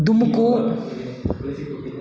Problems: background conversations at intervals